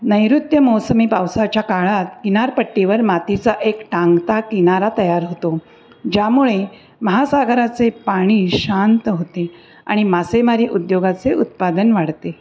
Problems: constant background noise